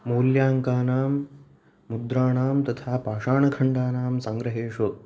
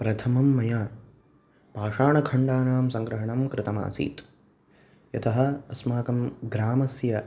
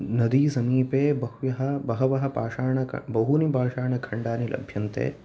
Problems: none marked